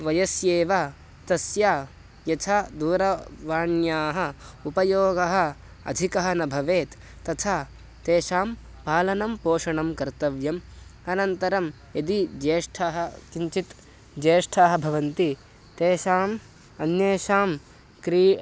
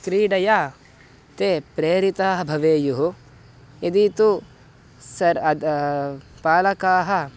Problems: constant background noise